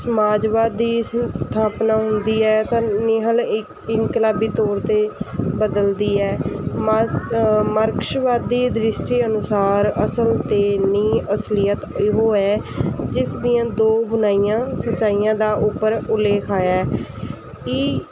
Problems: constant background noise